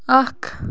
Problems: constant background noise